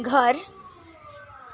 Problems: none marked